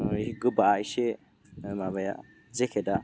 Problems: none marked